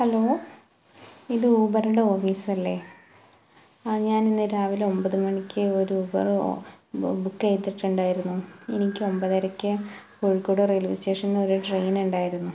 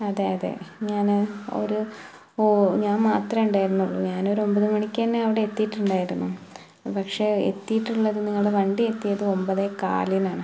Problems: background sounds at intervals